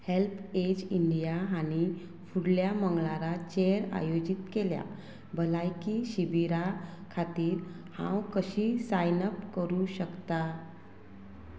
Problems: constant background noise